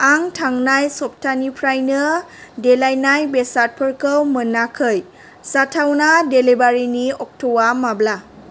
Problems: none marked